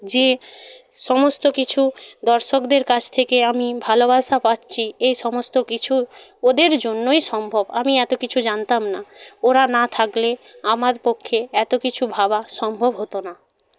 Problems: none marked